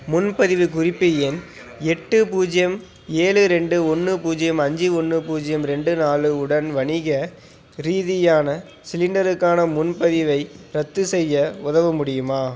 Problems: constant background noise